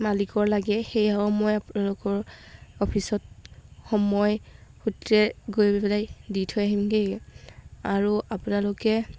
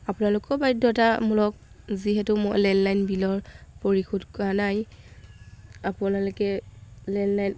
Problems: background sounds at intervals